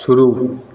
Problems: none marked